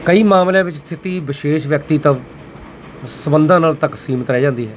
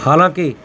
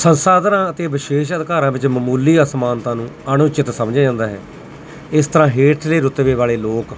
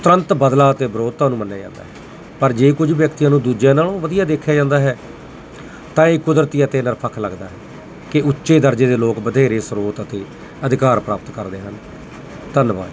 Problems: constant background noise